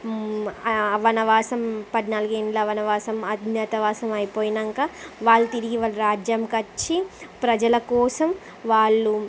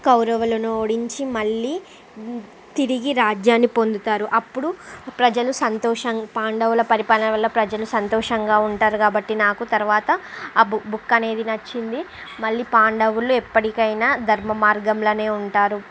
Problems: constant background noise, background conversations at intervals